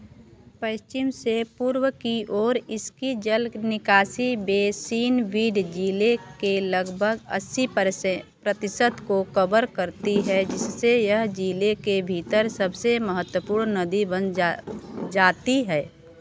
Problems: background sounds at intervals